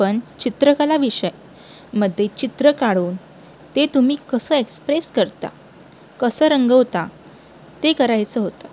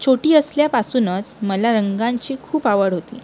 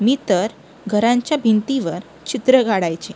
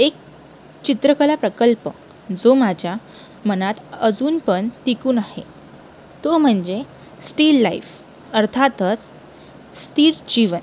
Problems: constant background noise